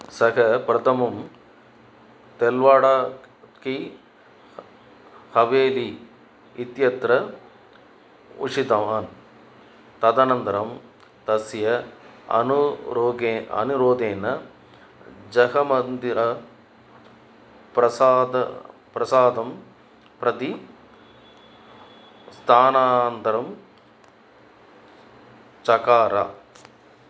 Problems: none marked